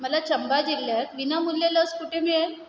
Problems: background sounds at intervals